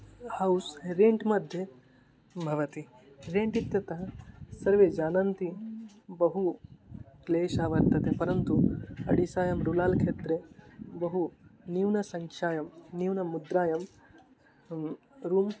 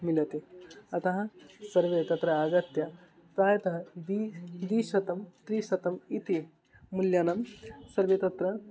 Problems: background sounds at intervals